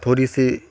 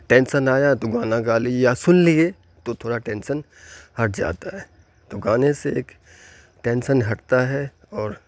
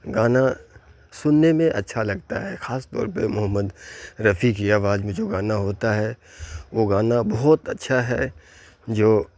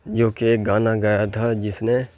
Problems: constant background noise